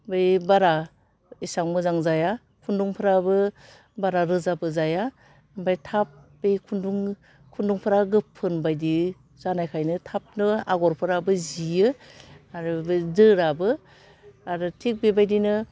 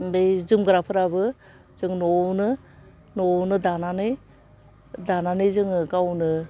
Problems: low volume